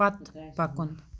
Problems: background sounds at intervals